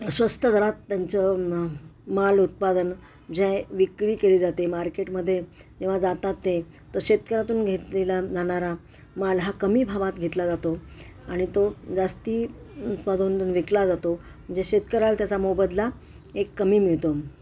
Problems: constant background noise